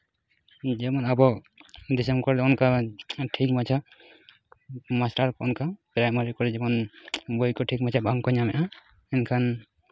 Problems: constant background noise